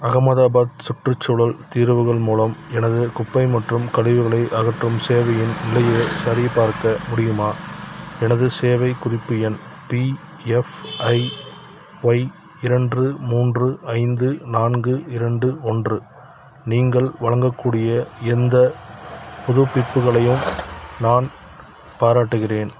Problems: background sounds at intervals